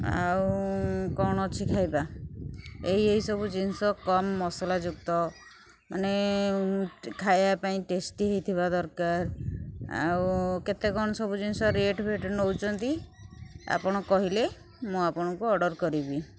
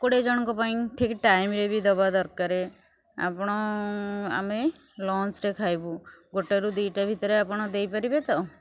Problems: none marked